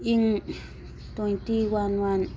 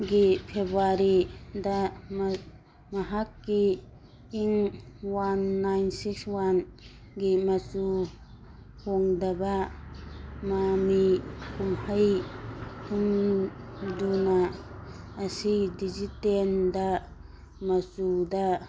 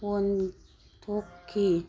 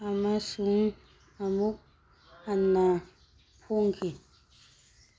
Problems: background sounds at intervals